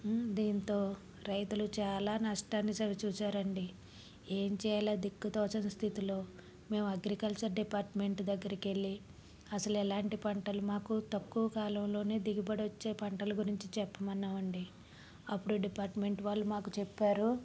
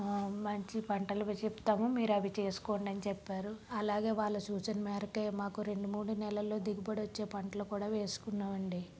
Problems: background sounds at intervals, low volume